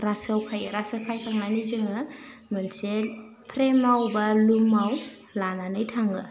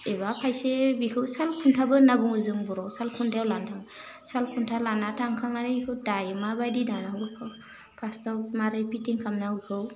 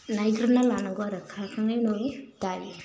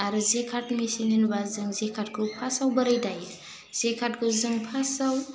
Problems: constant background noise